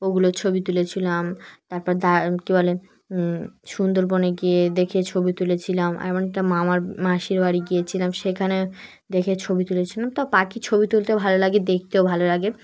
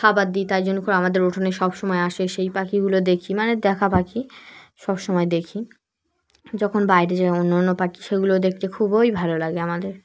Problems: none marked